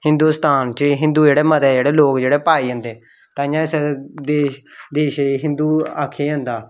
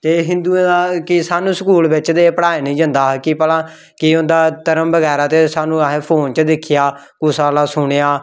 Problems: none marked